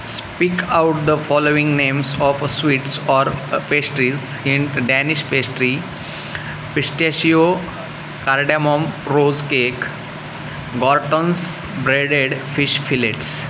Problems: constant background noise